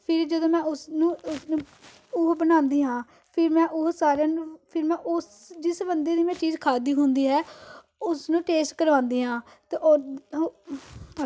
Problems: background sounds at intervals